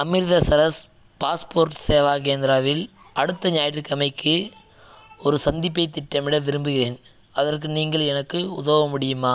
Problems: background sounds at intervals